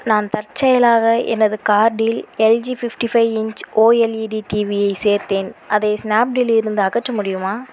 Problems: constant background noise